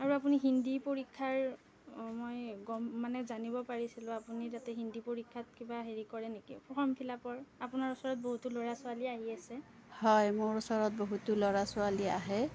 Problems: low volume